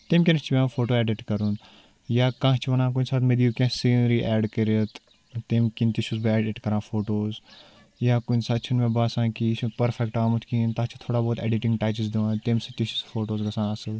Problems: none marked